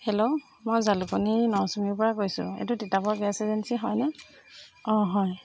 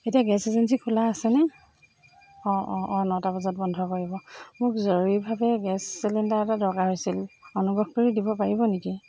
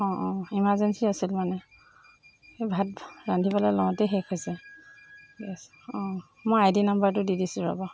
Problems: constant background noise